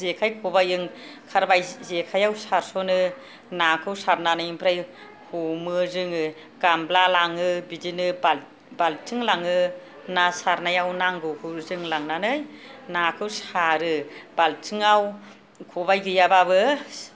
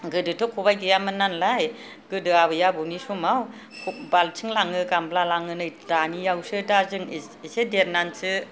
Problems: background sounds at intervals